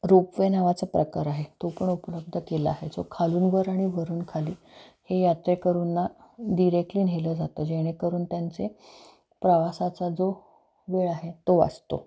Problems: none marked